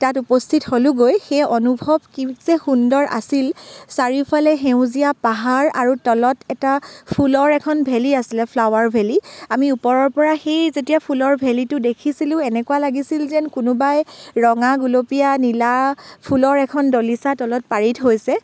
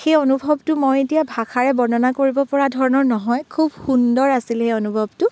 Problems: none marked